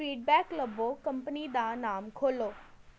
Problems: none marked